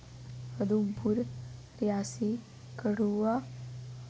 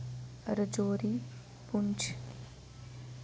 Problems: echo